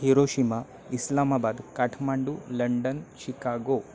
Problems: background sounds at intervals, background conversations at intervals